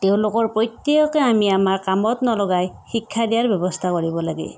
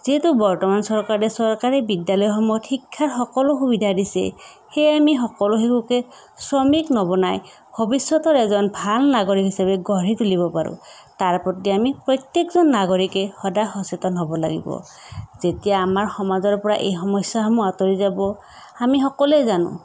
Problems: none marked